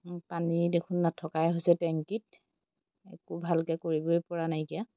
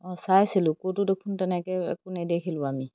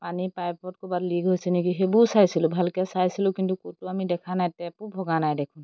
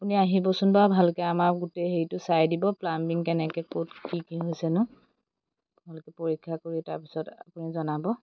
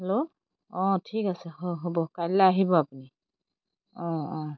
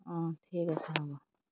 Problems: background sounds at intervals